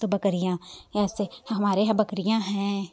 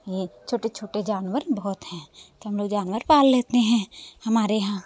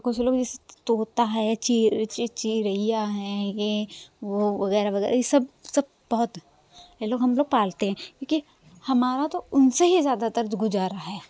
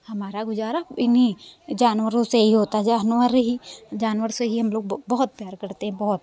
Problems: none marked